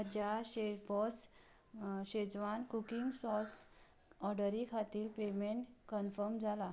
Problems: none marked